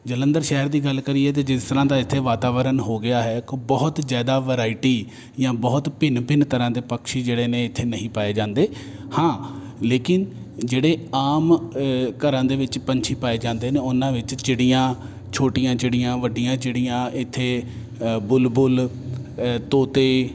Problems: none marked